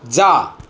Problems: background sounds at intervals